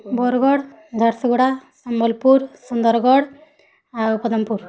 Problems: constant background noise, continuous background conversations